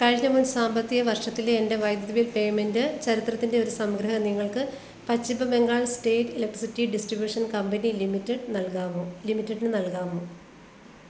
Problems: constant background noise